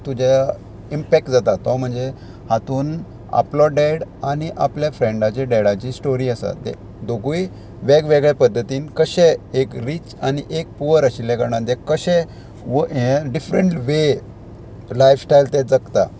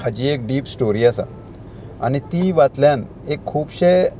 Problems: constant background noise